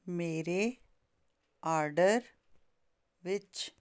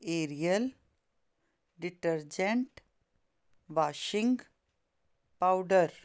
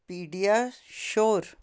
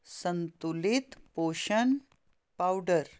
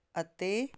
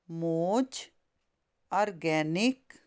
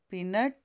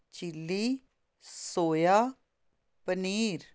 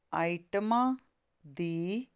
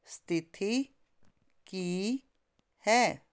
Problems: constant background noise